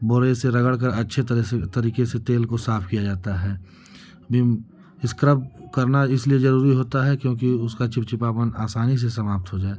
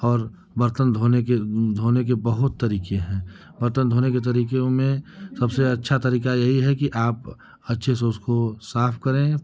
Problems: constant background noise